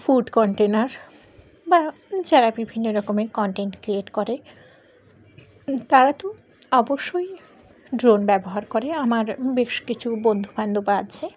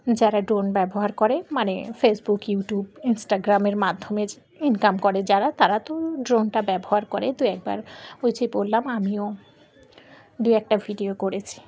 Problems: background sounds at intervals